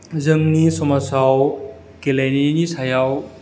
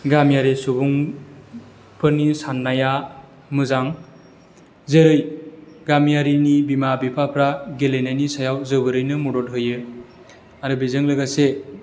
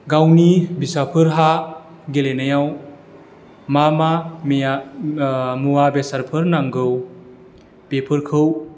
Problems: none marked